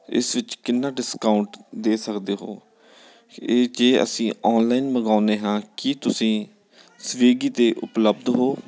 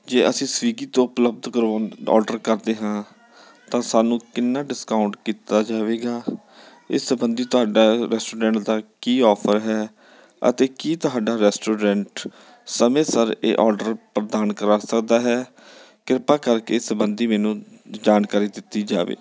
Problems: none marked